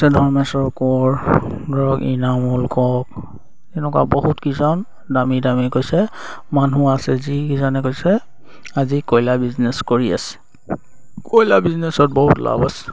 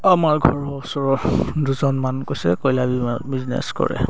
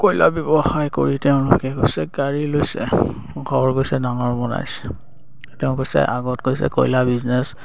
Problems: none marked